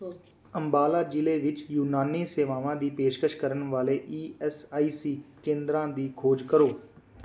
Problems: background sounds at intervals